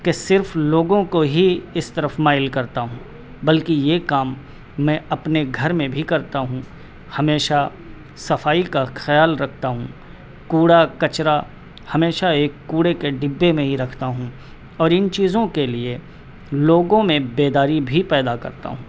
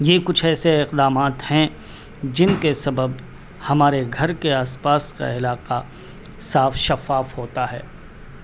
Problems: constant background noise